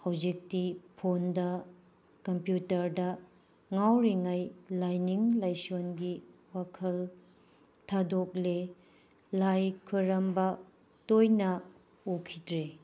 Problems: background sounds at intervals